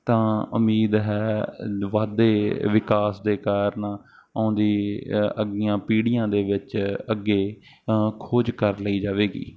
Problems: none marked